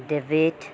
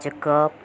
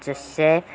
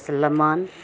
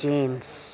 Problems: background sounds at intervals